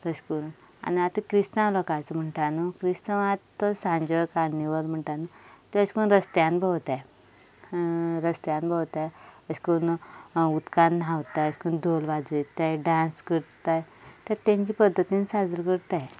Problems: background sounds at intervals